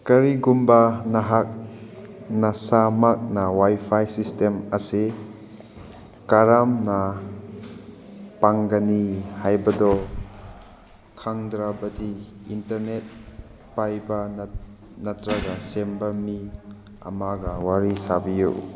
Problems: background sounds at intervals